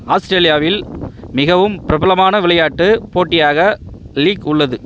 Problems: background sounds at intervals